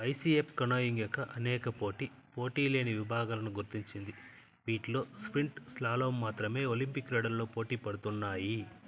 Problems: constant background noise, low volume